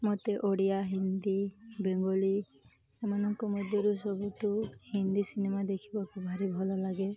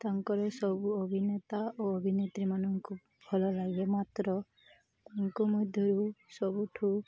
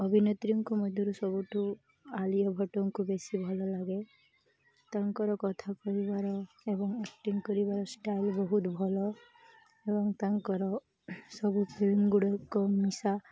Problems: none marked